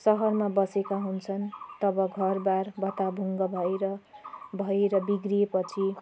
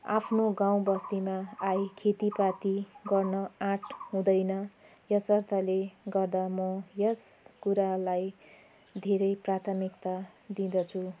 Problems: constant background noise